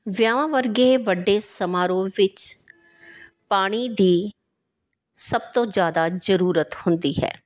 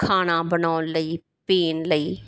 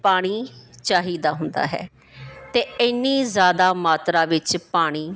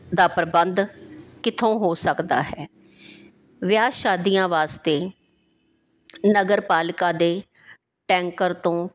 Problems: background sounds at intervals